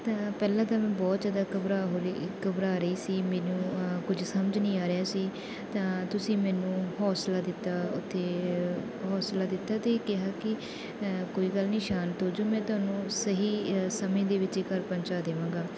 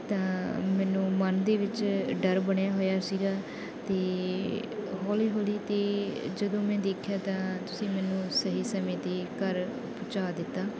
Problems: none marked